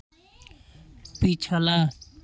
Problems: background sounds at intervals